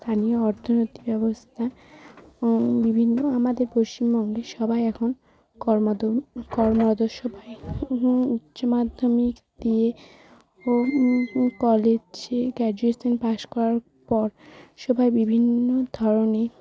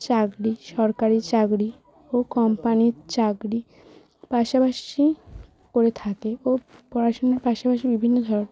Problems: constant background noise, background conversations at intervals